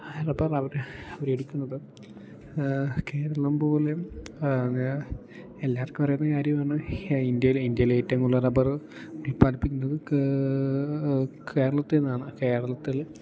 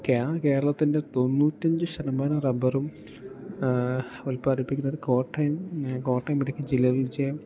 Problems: none marked